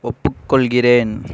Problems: none marked